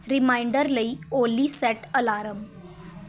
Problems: constant background noise